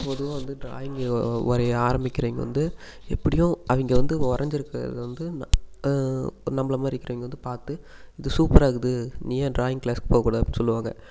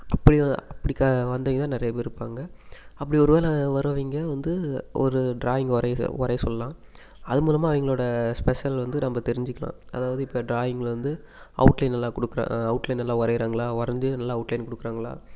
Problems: none marked